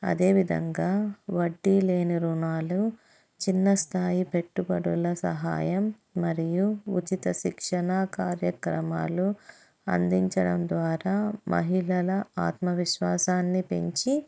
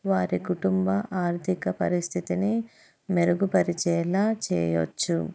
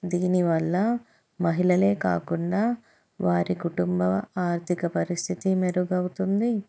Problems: none marked